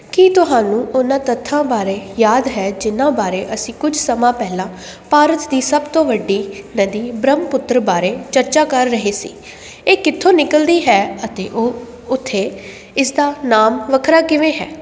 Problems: constant background noise